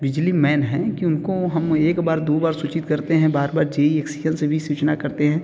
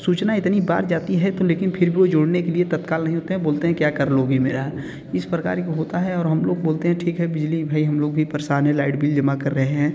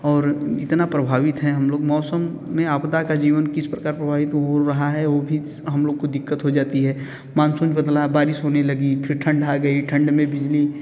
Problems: background sounds at intervals